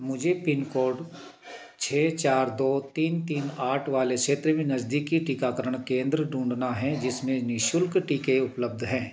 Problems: constant background noise